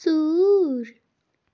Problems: background sounds at intervals